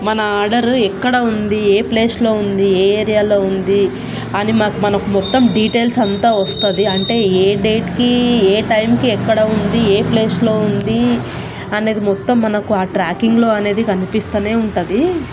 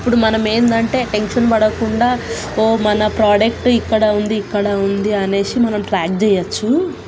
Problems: constant background noise